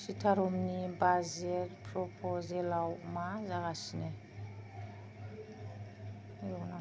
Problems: low volume